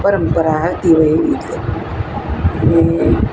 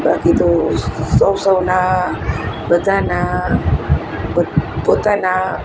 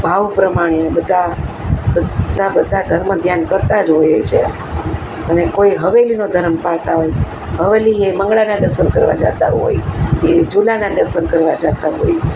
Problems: constant background noise